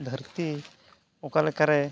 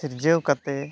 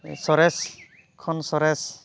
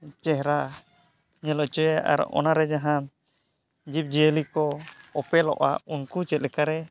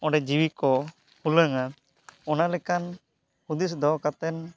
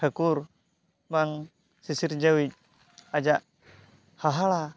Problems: background sounds at intervals